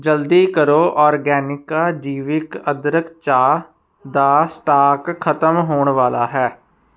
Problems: constant background noise